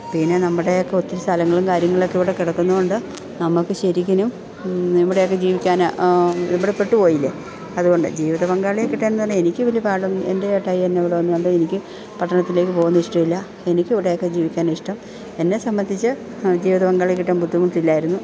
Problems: background sounds at intervals